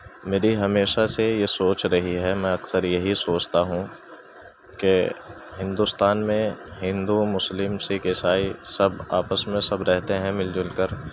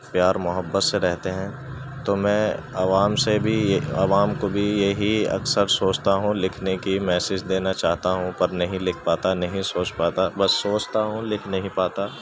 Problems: constant background noise